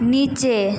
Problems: constant background noise